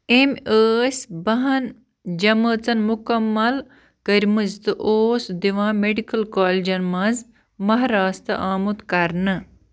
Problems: constant background noise